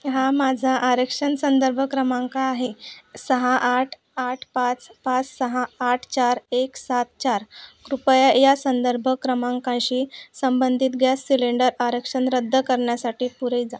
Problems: background sounds at intervals